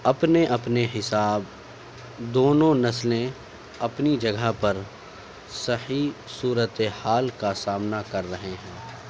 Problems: none marked